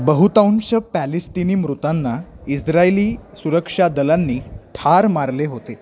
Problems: constant background noise, continuous background conversations